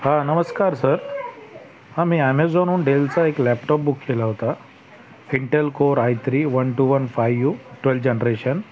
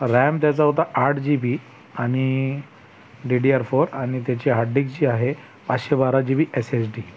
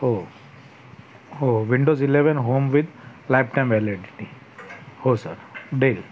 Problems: background sounds at intervals, background conversations at intervals